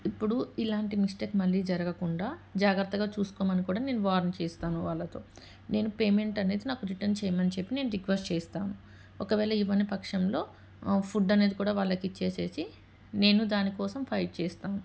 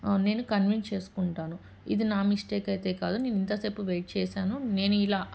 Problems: background sounds at intervals